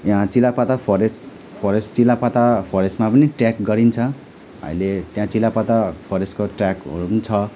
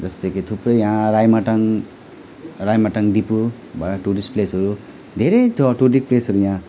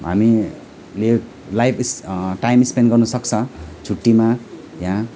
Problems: none marked